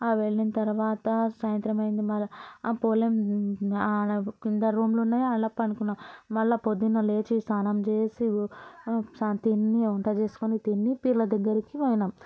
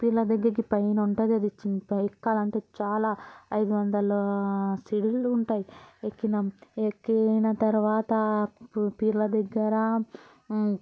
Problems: continuous background conversations